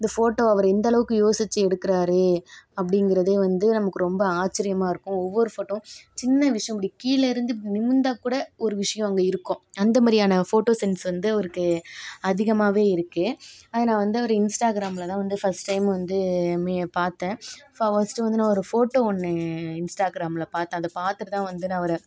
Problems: background sounds at intervals